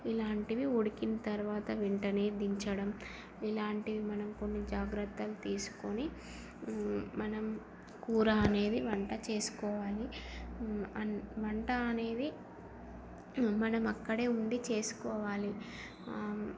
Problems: constant background noise, low volume